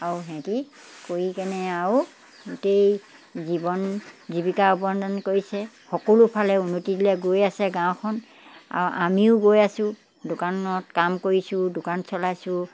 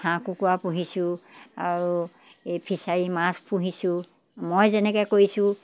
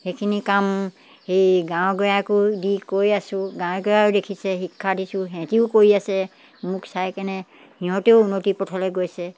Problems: none marked